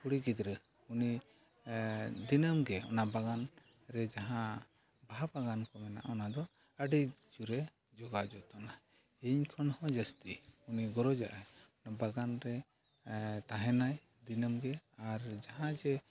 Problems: background sounds at intervals, low volume